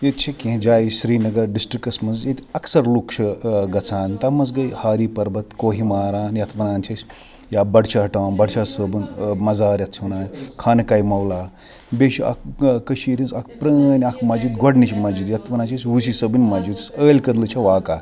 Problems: background sounds at intervals, background conversations at intervals